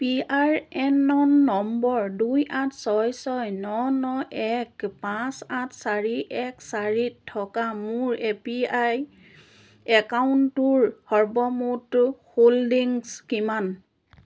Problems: none marked